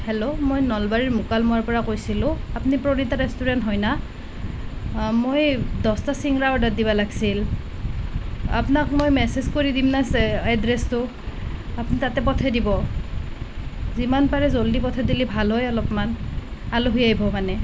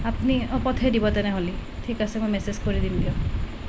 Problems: constant background noise